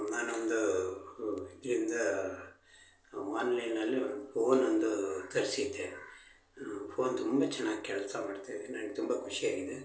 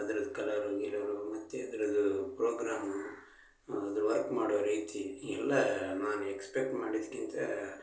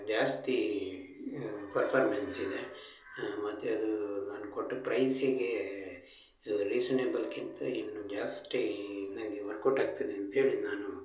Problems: none marked